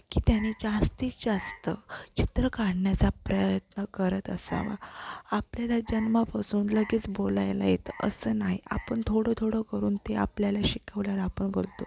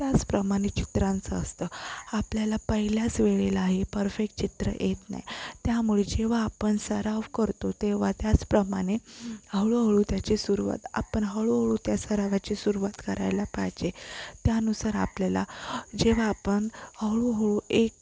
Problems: constant background noise